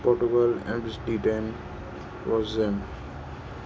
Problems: constant background noise, echo, low volume